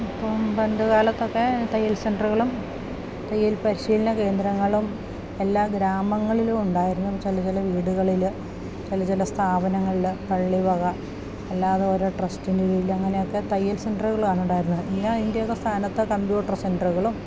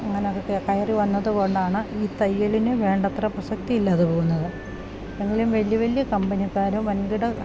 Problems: constant background noise, low volume